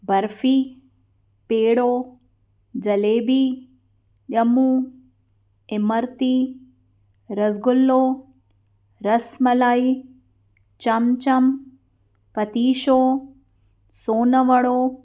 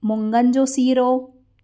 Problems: none marked